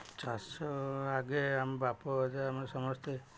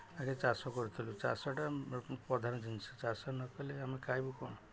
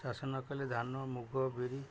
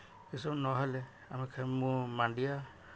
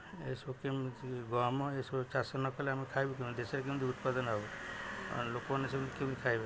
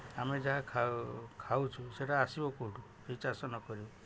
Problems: none marked